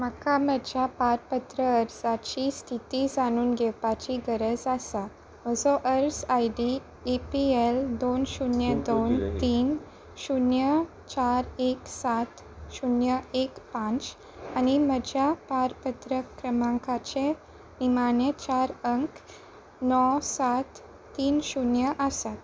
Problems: none marked